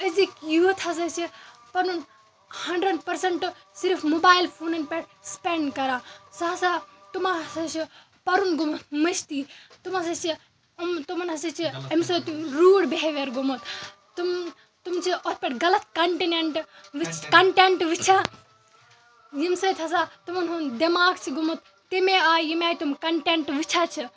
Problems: constant background noise, background conversations at intervals